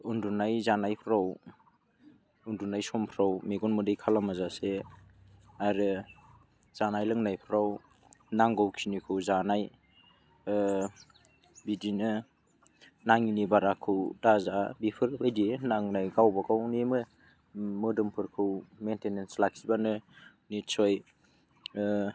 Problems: none marked